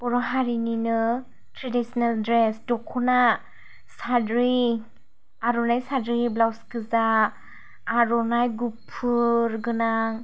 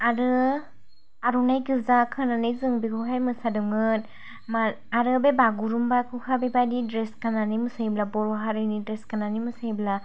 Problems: none marked